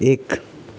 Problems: constant background noise